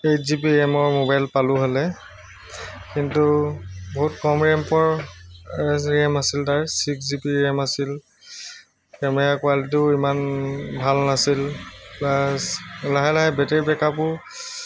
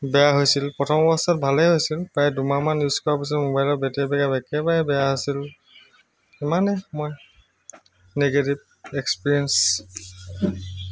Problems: constant background noise, background conversations at intervals